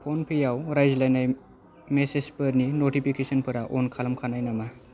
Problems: none marked